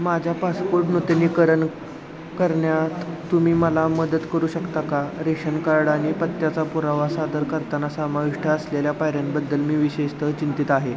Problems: constant background noise, background conversations at intervals